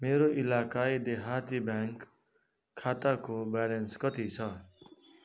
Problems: background conversations at intervals